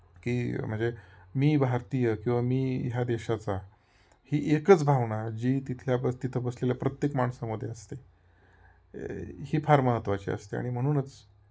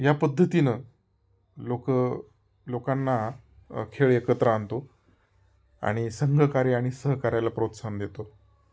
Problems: none marked